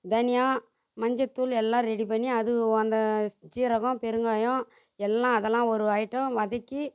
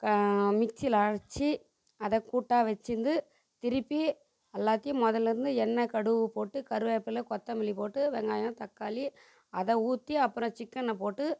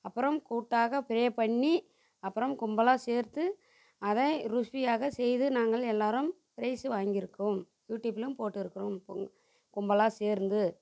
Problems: constant background noise